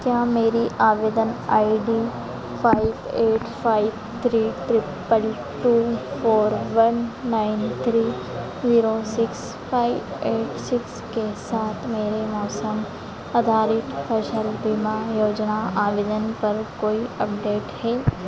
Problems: none marked